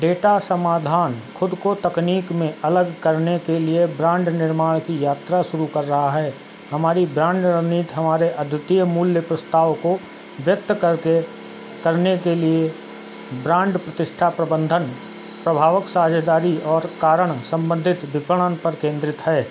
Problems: constant background noise